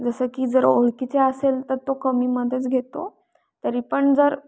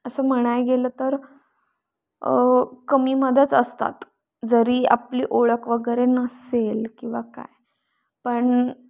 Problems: constant background noise